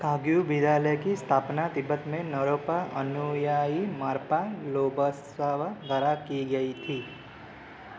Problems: constant background noise